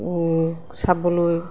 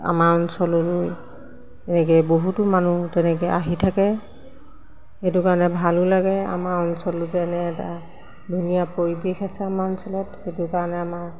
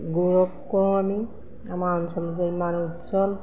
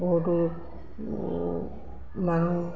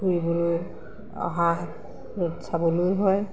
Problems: constant background noise, background conversations at intervals